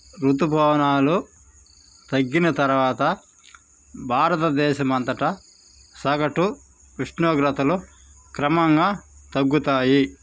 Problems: constant background noise